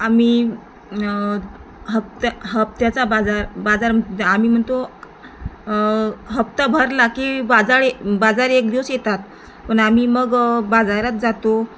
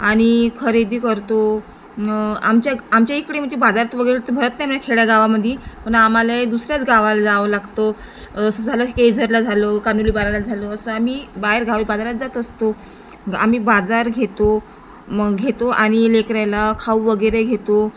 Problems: constant background noise